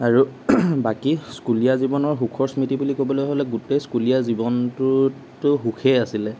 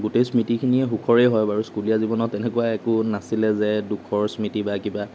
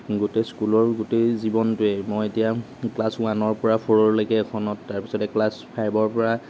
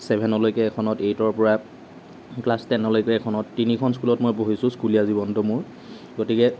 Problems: none marked